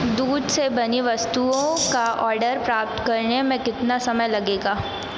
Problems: constant background noise